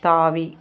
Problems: constant background noise